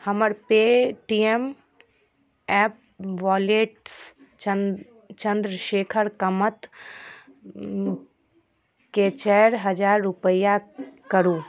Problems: none marked